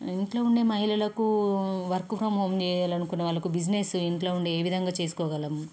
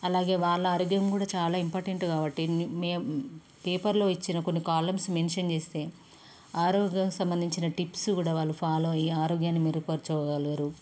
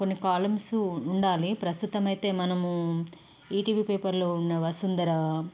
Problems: none marked